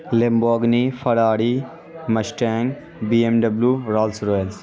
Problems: constant background noise